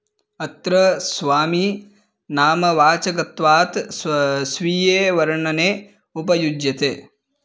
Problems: none marked